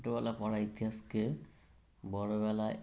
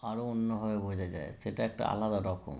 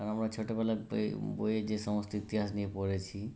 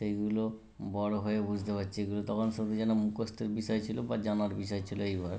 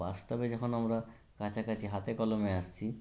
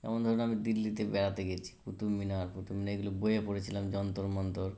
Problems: none marked